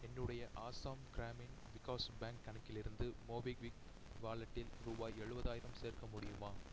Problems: low volume